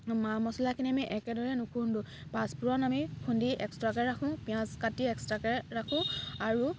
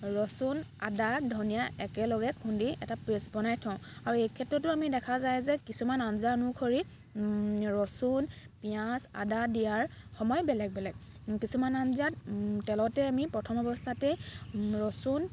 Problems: background sounds at intervals